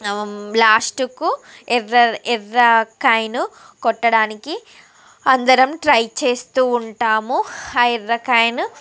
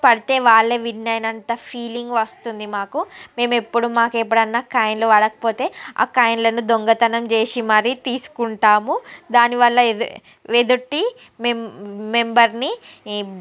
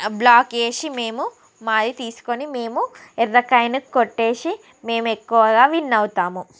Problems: none marked